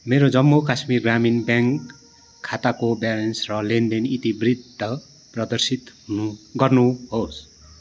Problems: none marked